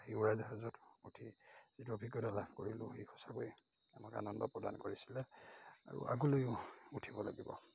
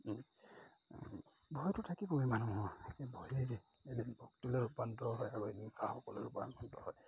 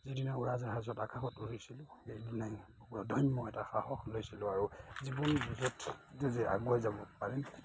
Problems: constant background noise, background conversations at intervals